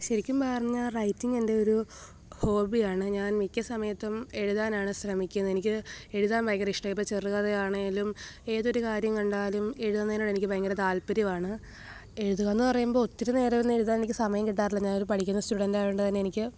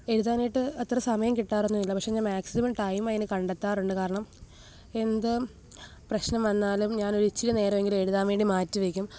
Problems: background sounds at intervals, low volume